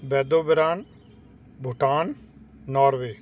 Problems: constant background noise